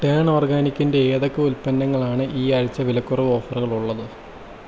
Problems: none marked